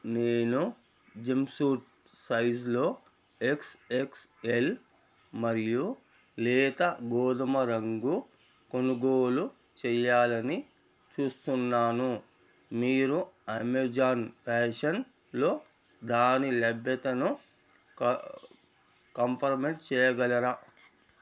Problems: none marked